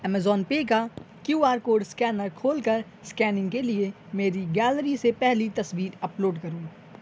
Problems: none marked